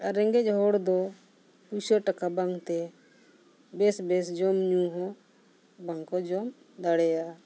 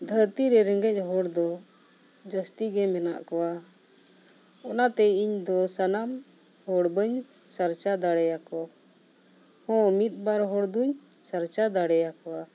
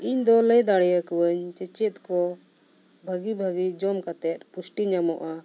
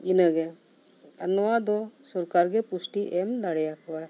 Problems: none marked